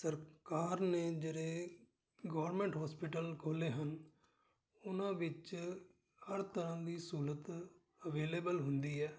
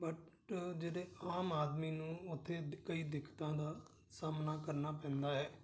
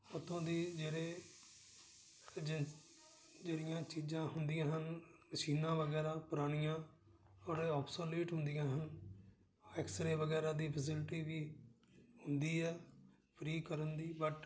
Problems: none marked